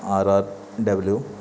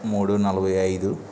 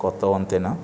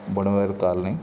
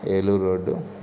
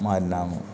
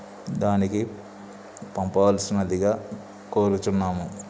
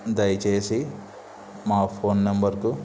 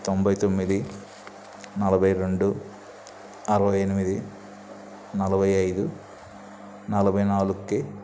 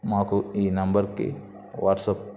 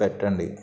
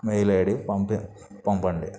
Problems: background sounds at intervals, low volume